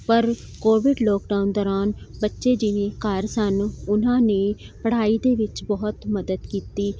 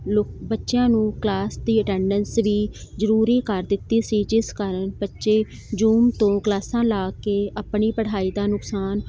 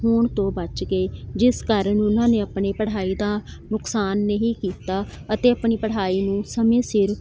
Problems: none marked